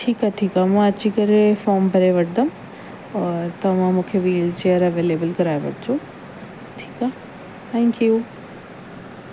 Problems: constant background noise